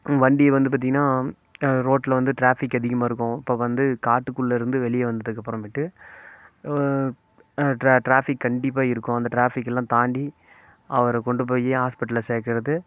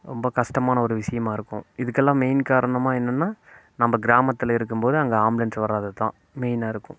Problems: constant background noise